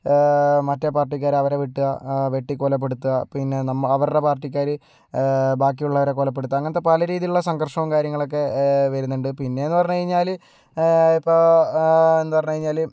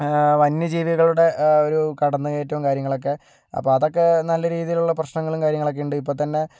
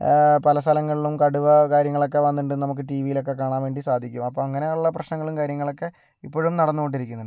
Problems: none marked